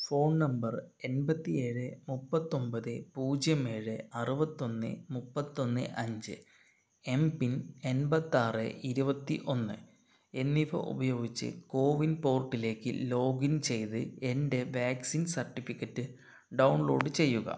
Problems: none marked